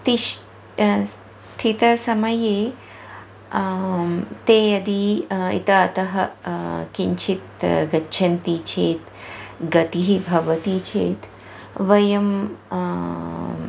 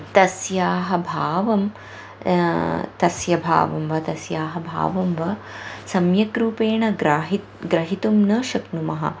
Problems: constant background noise